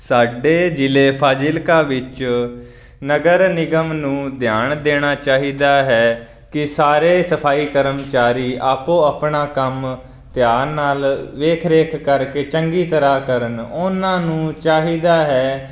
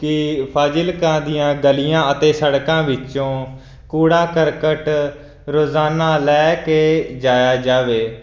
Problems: none marked